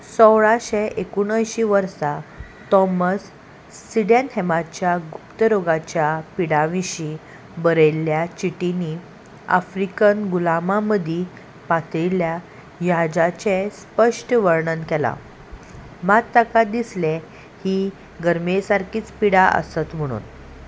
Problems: constant background noise